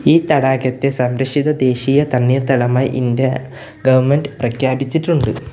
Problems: none marked